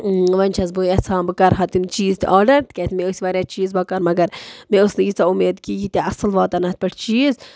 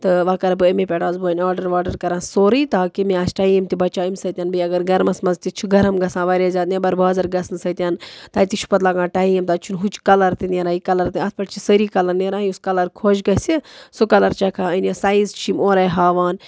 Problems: background sounds at intervals